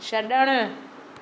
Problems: none marked